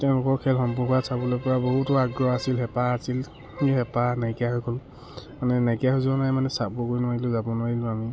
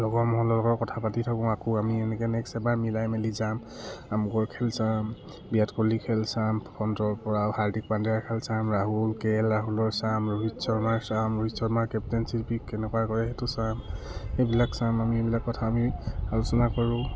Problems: none marked